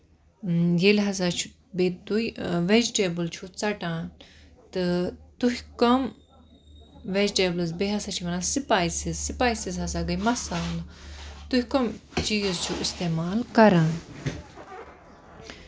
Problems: constant background noise